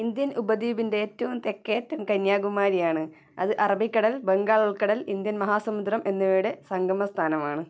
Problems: low volume